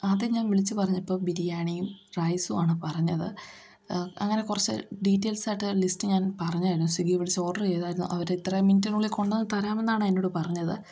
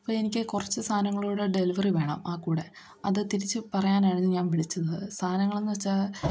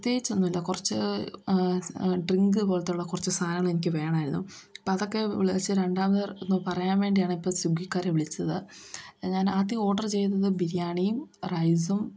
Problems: background sounds at intervals